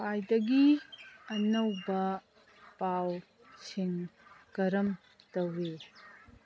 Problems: background sounds at intervals